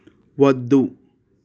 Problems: constant background noise